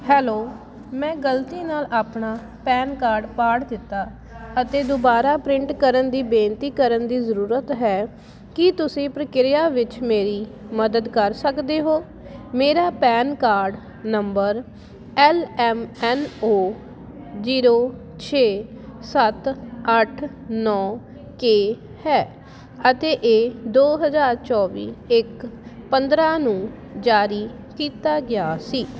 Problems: constant background noise